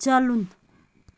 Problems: none marked